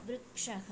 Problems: low volume